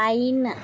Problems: constant background noise